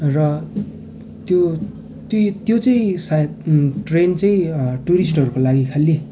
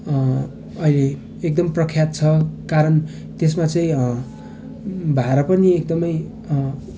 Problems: none marked